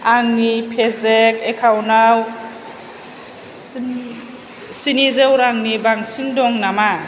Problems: low volume